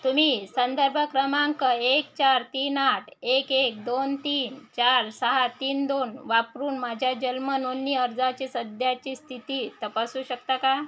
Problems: constant background noise